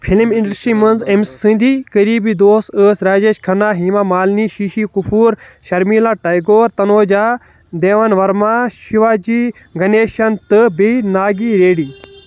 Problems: background sounds at intervals